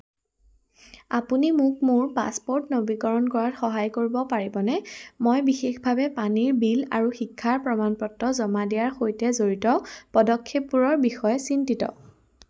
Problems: background sounds at intervals